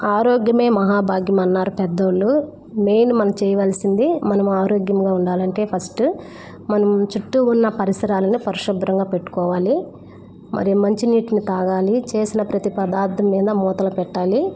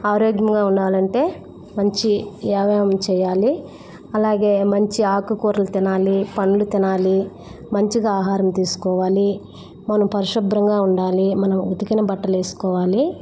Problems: constant background noise